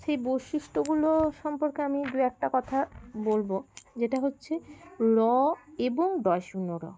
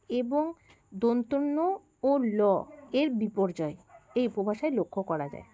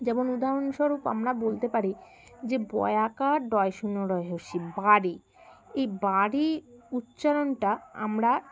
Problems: constant background noise, continuous background conversations